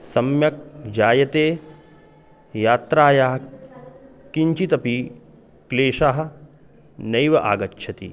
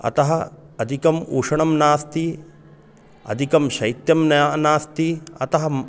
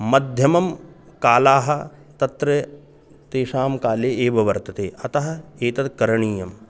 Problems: none marked